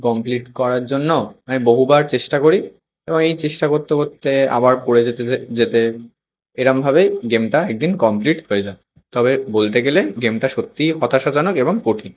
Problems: constant background noise